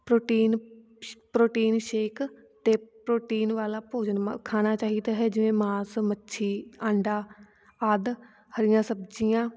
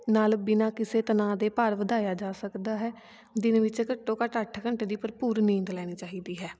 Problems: none marked